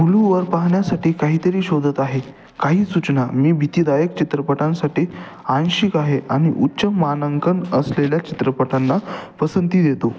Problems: constant background noise, echo